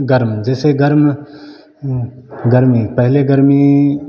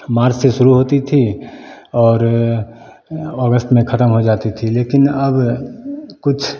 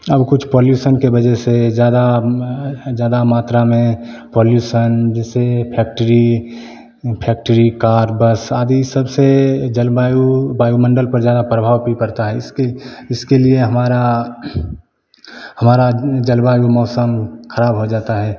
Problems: none marked